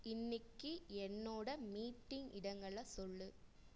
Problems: low volume